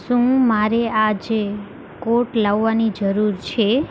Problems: constant background noise